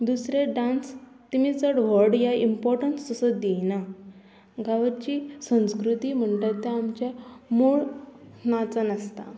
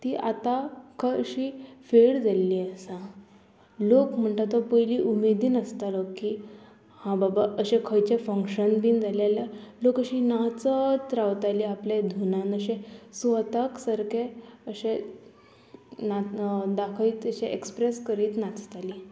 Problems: none marked